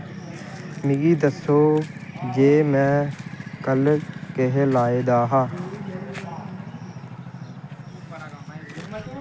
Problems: constant background noise